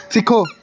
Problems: background sounds at intervals